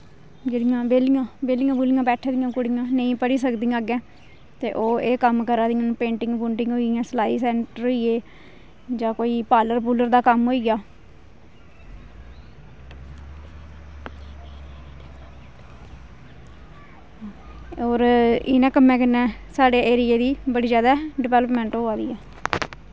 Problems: none marked